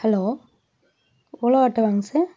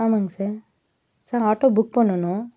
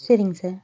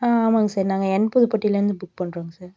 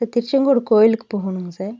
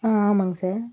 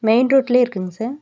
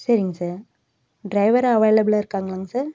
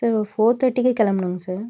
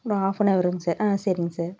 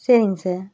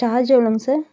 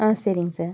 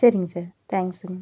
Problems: none marked